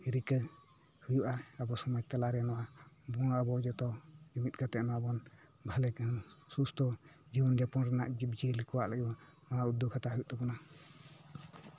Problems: none marked